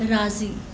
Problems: constant background noise